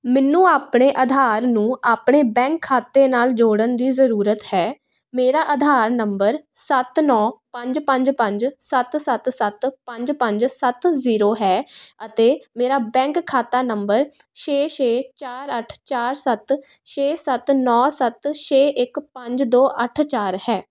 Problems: background sounds at intervals